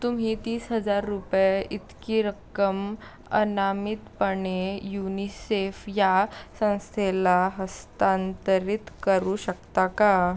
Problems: background sounds at intervals